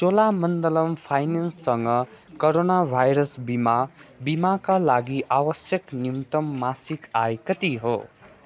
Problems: constant background noise